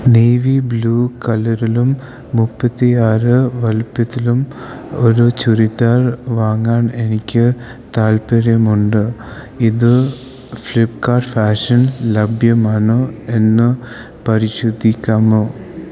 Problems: constant background noise